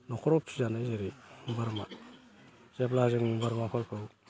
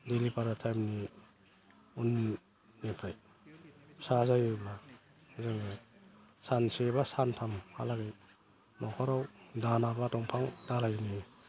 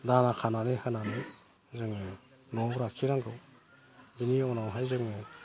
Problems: none marked